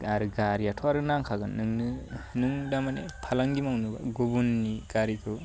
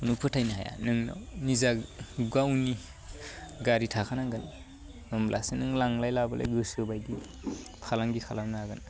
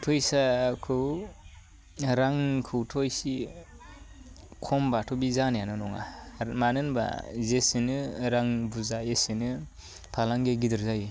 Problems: none marked